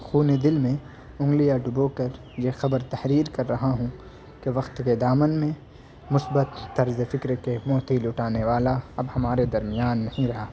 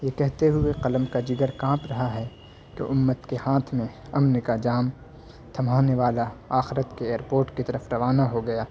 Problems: constant background noise, background conversations at intervals